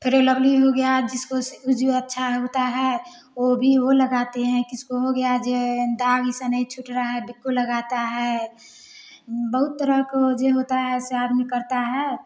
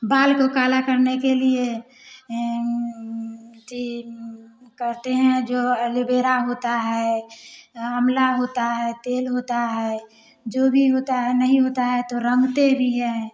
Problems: background sounds at intervals, background conversations at intervals